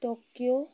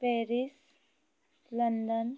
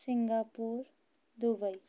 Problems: constant background noise